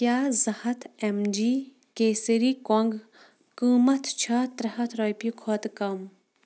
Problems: none marked